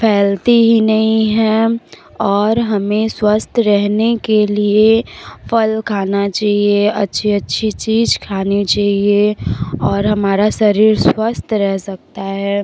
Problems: none marked